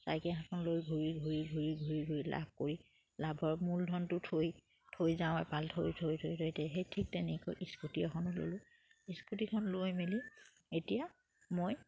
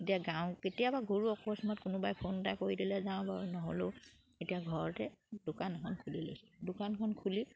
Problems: none marked